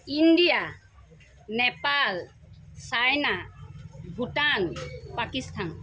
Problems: constant background noise